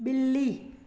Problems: echo